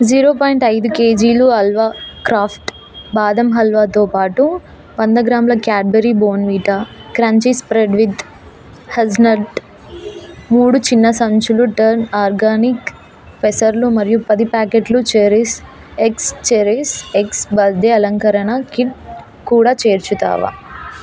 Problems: constant background noise, continuous background conversations